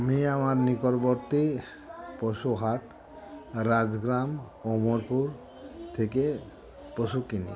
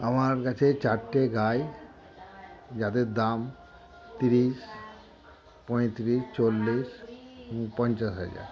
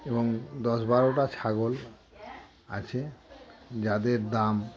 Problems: constant background noise, background conversations at intervals